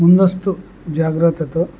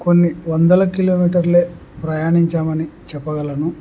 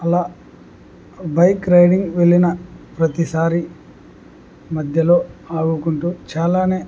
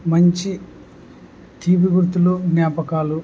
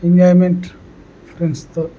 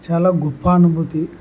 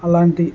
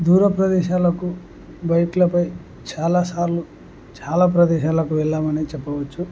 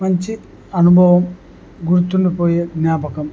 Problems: none marked